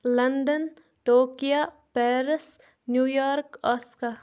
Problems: background sounds at intervals